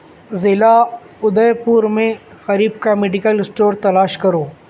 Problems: none marked